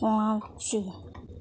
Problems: none marked